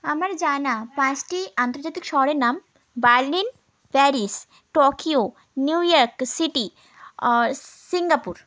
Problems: constant background noise